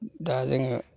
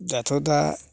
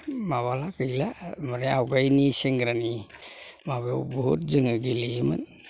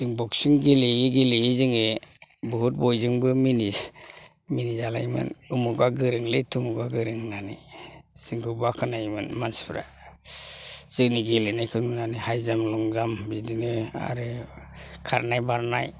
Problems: low volume